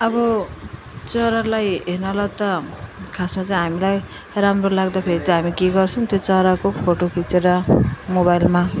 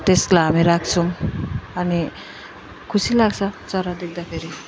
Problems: continuous background conversations